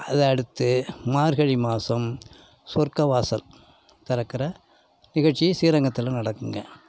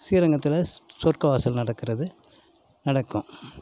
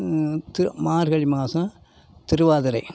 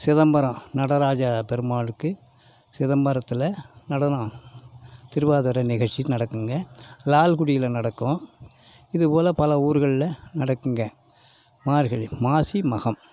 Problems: none marked